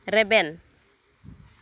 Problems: none marked